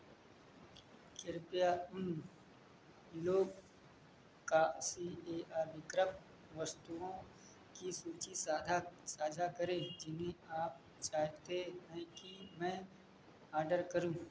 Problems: echo